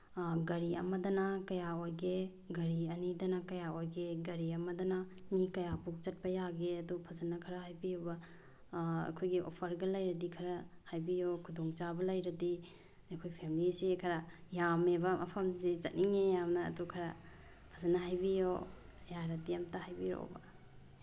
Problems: low volume